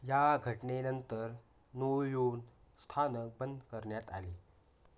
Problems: none marked